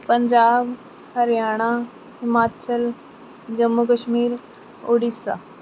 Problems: constant background noise